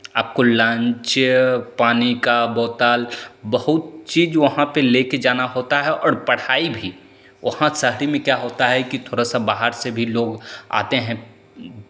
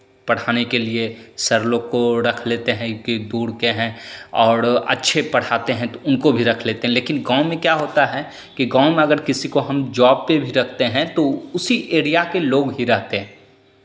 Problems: constant background noise, echo